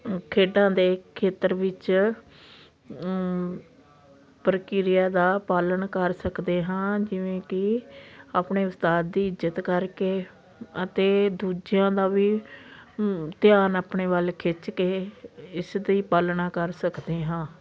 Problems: constant background noise